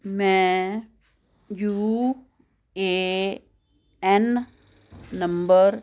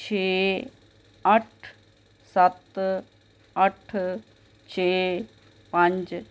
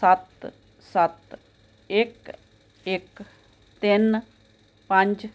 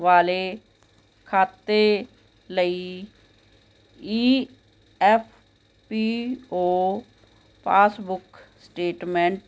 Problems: constant background noise